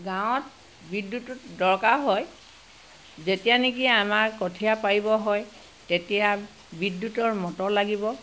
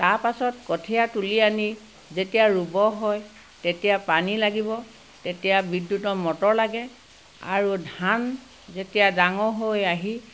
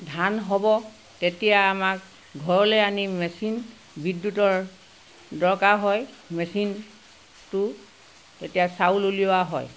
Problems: background sounds at intervals